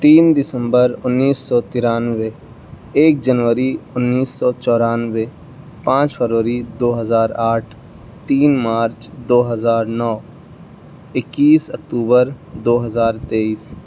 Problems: constant background noise